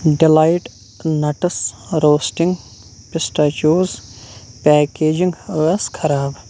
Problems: none marked